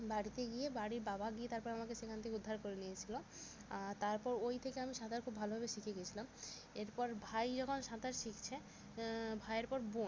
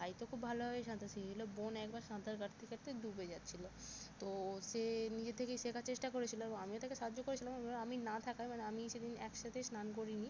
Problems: constant background noise